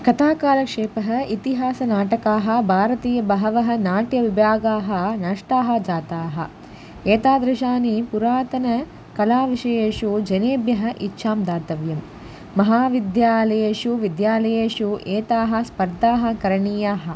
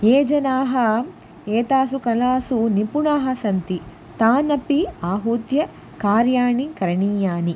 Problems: none marked